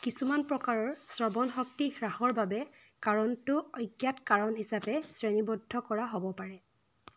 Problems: background sounds at intervals